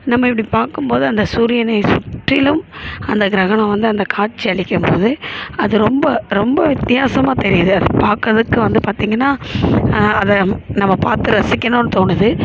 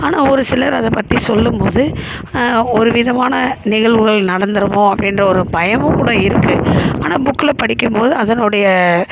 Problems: constant background noise